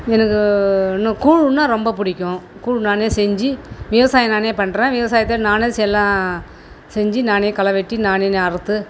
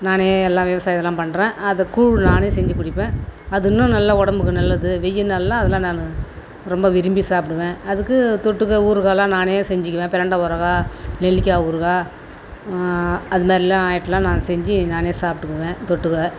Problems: constant background noise